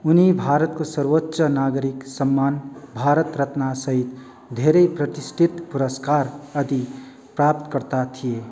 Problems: none marked